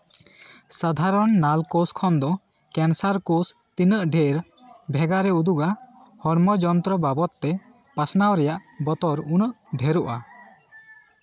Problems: continuous background conversations